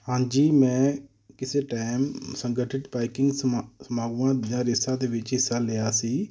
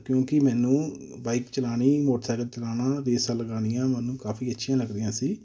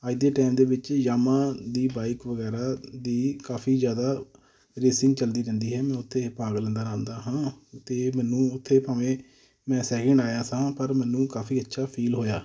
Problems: none marked